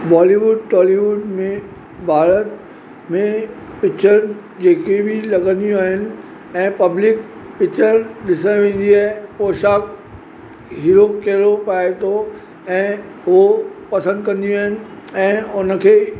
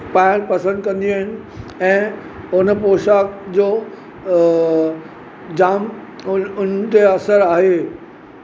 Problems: constant background noise